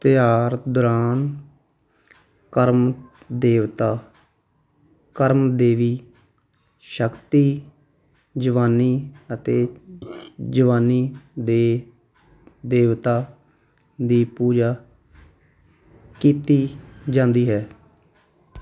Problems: none marked